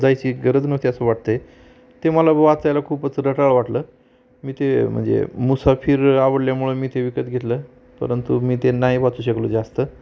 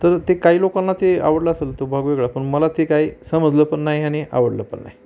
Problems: none marked